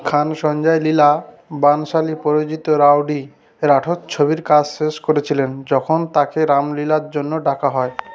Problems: none marked